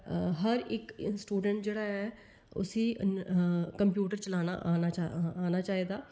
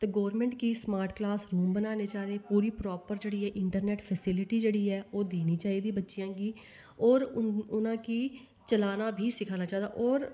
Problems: none marked